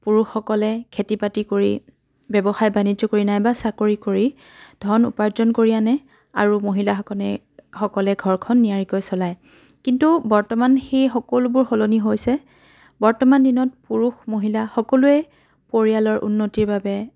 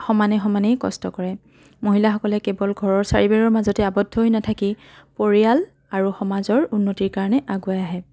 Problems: continuous background conversations